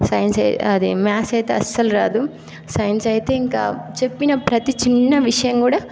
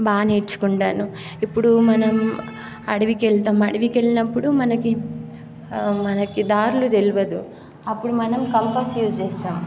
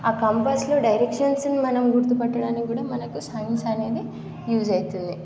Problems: constant background noise